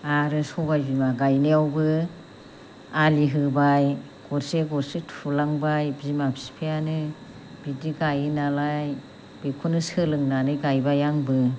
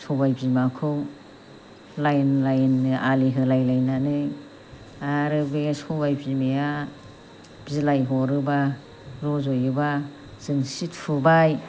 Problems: constant background noise